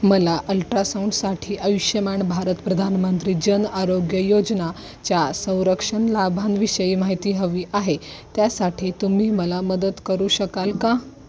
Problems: none marked